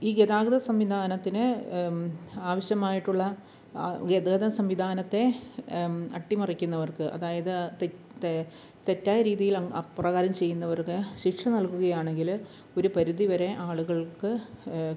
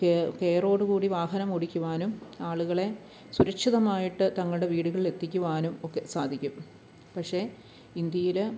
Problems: background sounds at intervals, low volume